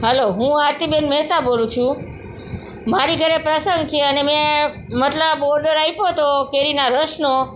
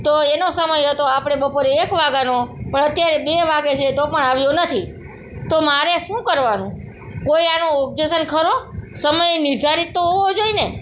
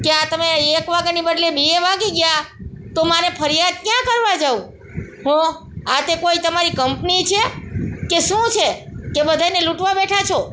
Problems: constant background noise, background conversations at intervals